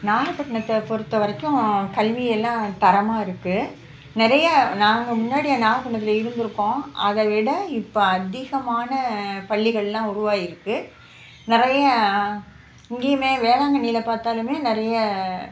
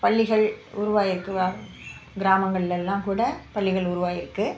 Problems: background sounds at intervals